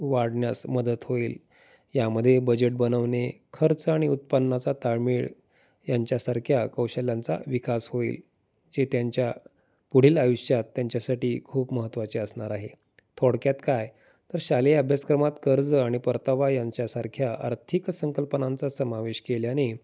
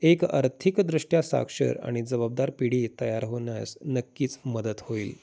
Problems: none marked